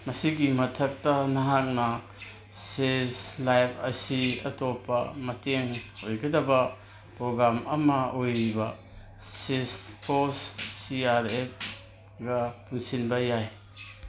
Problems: background sounds at intervals